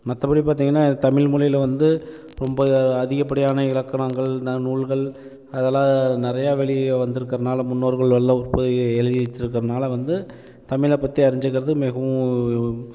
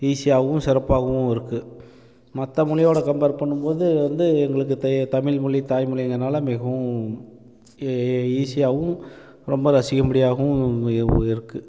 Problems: constant background noise